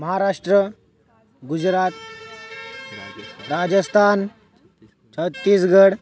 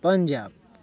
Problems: background sounds at intervals